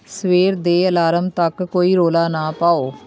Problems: constant background noise, background conversations at intervals